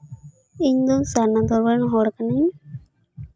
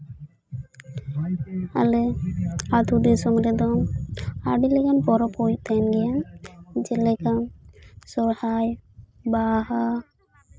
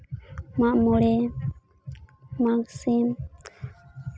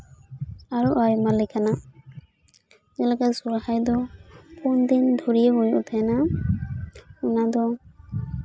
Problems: constant background noise, continuous background conversations